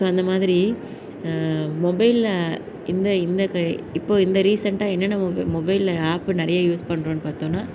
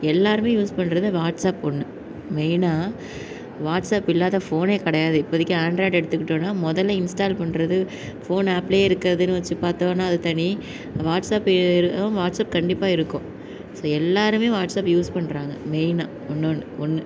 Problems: none marked